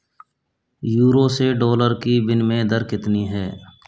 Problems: constant background noise